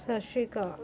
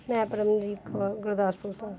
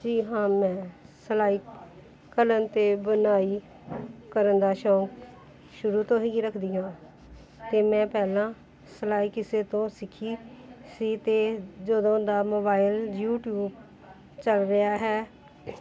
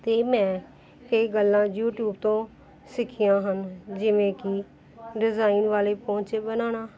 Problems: background sounds at intervals, background conversations at intervals